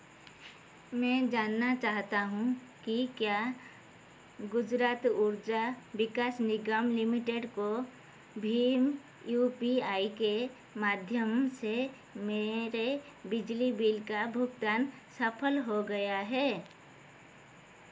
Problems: constant background noise